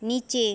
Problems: constant background noise